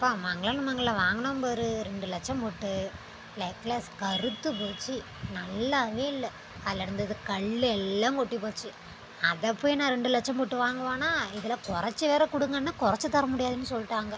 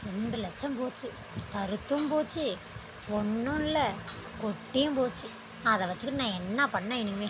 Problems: constant background noise